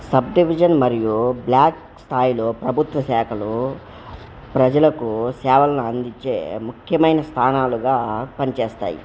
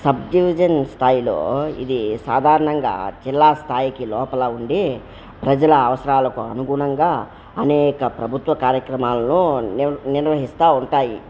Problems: background sounds at intervals